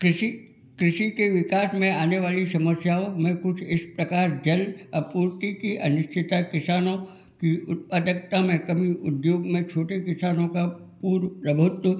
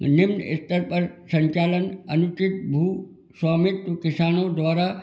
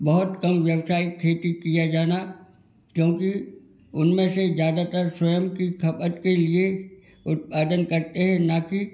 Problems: background sounds at intervals, background conversations at intervals